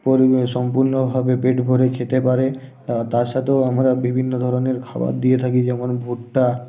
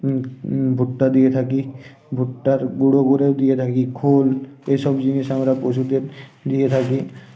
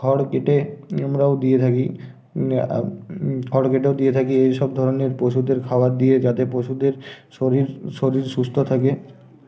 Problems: constant background noise